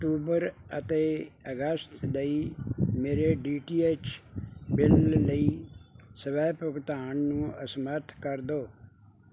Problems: background sounds at intervals